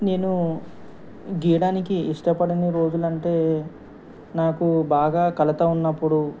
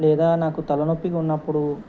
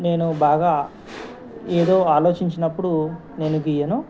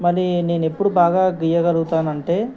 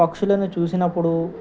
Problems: constant background noise